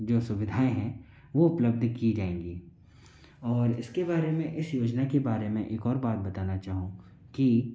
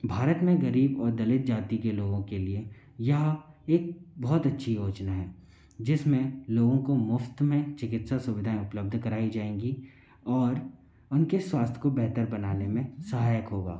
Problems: constant background noise